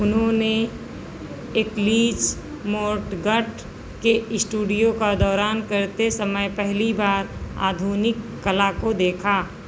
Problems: constant background noise